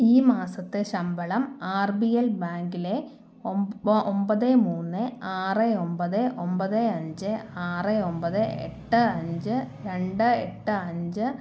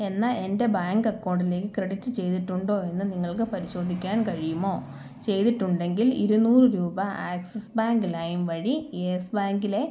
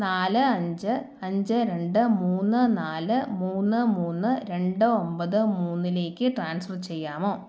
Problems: low volume